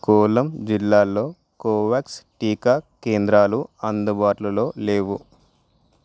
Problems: background sounds at intervals